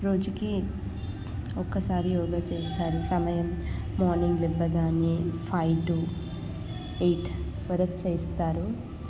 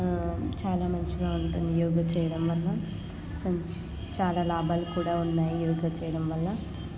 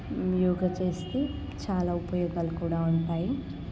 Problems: constant background noise, background conversations at intervals, low volume